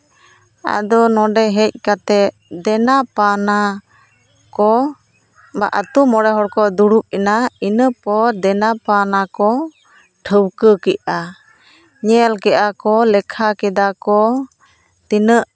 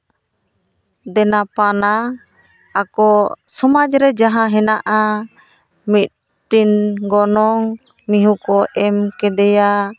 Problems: background sounds at intervals, background conversations at intervals